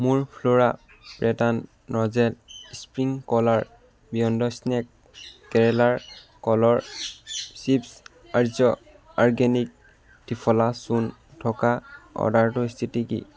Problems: background sounds at intervals